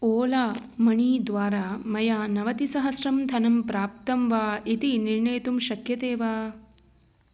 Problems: constant background noise